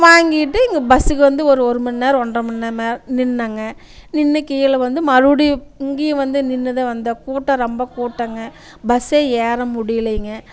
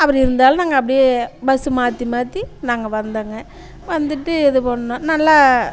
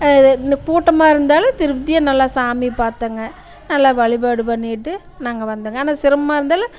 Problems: constant background noise, continuous background conversations